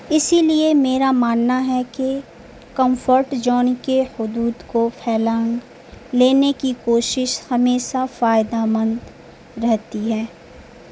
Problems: constant background noise